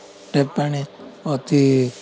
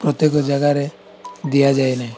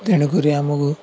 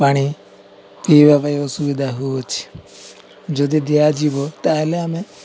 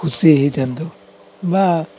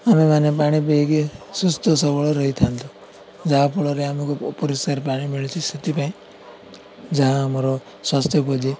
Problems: constant background noise, continuous background conversations